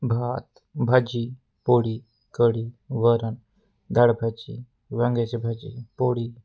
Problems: constant background noise